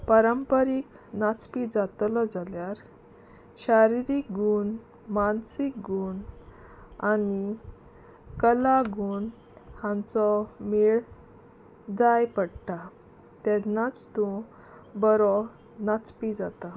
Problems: constant background noise